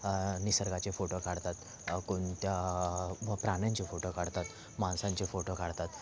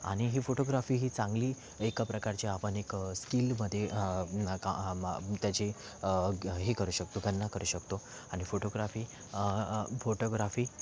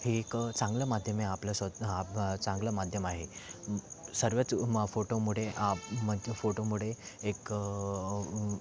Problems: constant background noise, background conversations at intervals